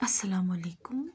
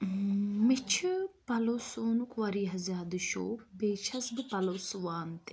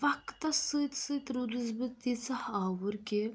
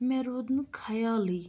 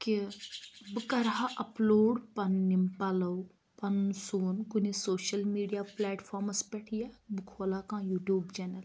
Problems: constant background noise